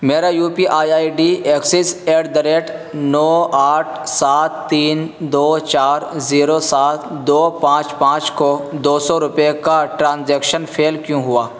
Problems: constant background noise